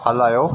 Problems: constant background noise, echo